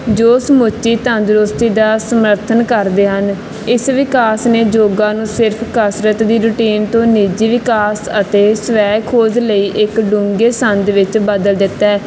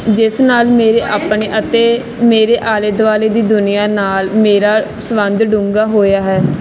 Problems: none marked